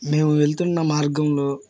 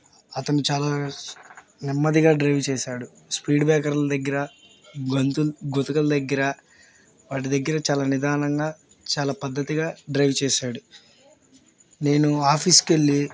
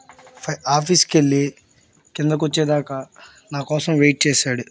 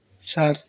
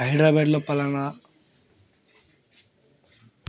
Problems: none marked